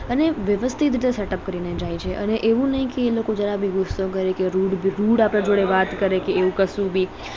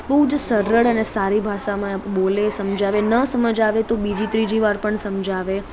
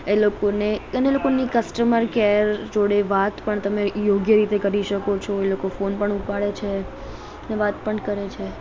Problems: background conversations at intervals